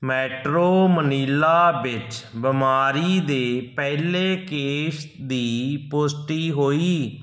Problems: background sounds at intervals